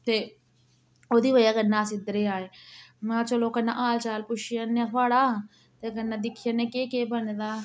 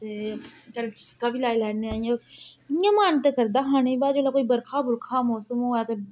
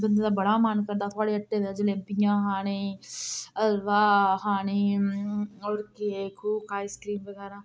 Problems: background sounds at intervals